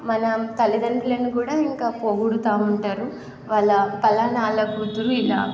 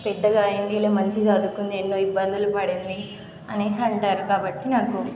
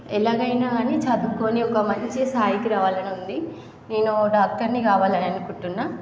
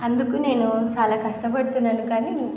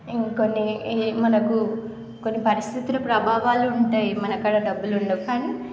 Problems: constant background noise, background conversations at intervals